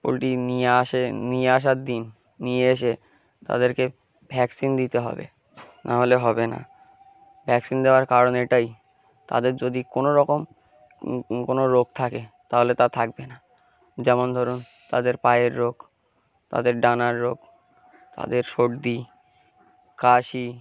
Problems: constant background noise, background conversations at intervals